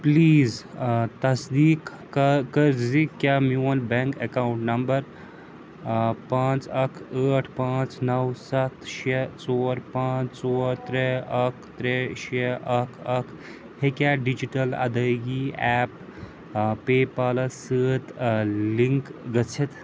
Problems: background sounds at intervals